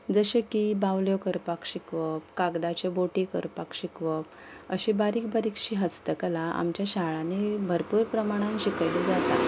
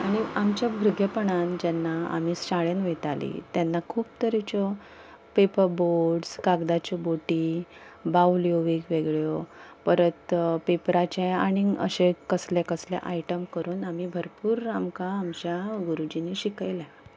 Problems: background sounds at intervals